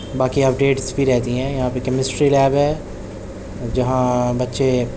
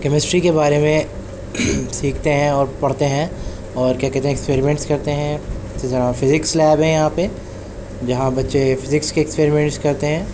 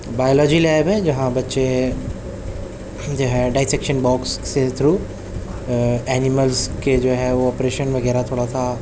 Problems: background sounds at intervals